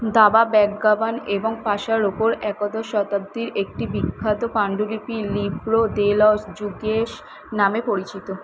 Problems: constant background noise